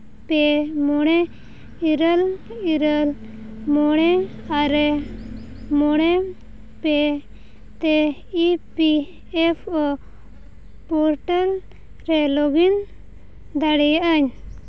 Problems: constant background noise